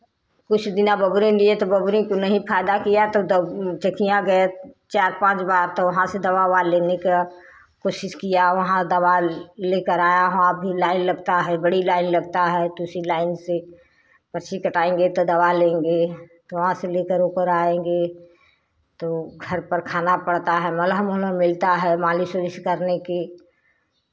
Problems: none marked